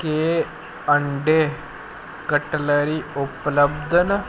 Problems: constant background noise